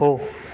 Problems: constant background noise